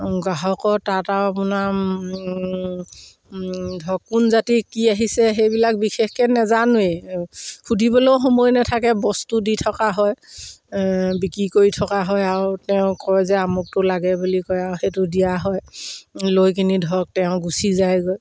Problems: background sounds at intervals